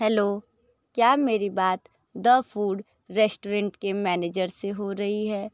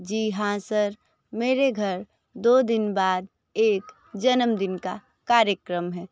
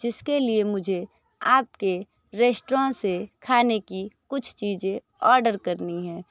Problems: background conversations at intervals